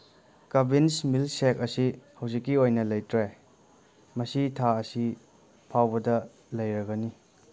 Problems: none marked